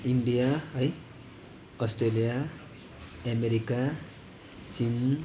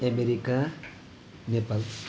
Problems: constant background noise, continuous background conversations